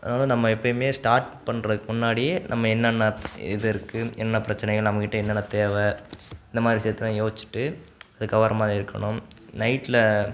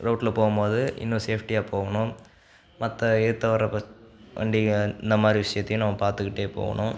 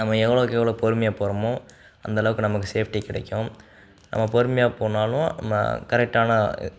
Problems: background sounds at intervals